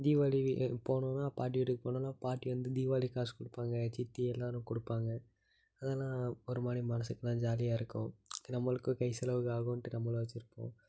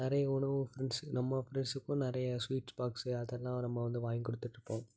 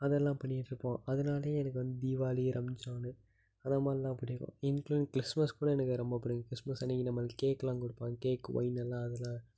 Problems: low volume